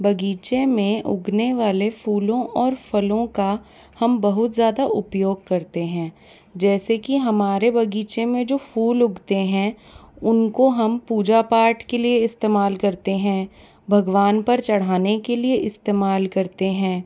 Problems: background sounds at intervals